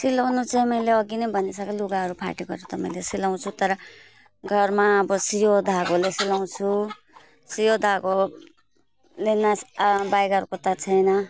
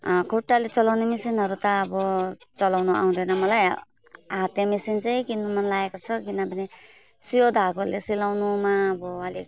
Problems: none marked